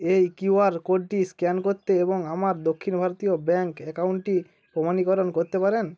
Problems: none marked